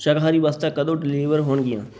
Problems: background sounds at intervals